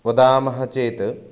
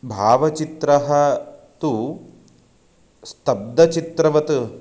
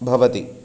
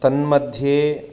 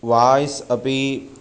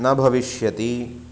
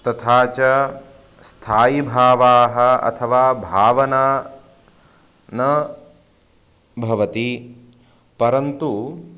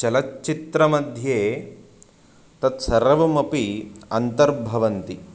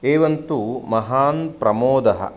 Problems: constant background noise